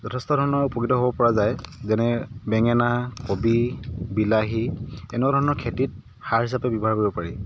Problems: background sounds at intervals